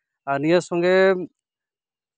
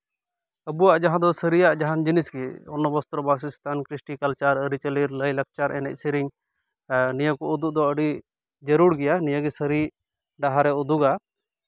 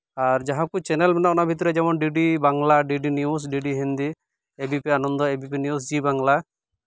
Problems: background sounds at intervals